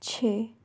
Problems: low volume